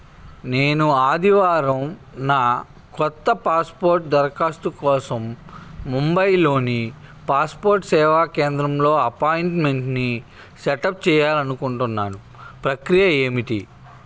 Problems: constant background noise